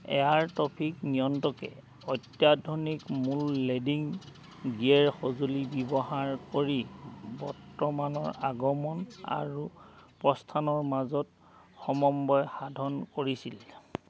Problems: none marked